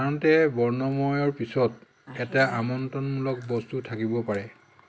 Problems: constant background noise